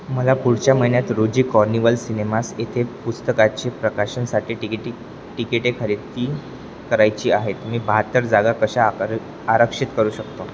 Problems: constant background noise